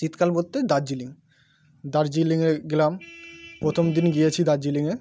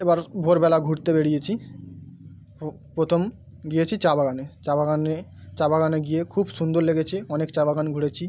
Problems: background sounds at intervals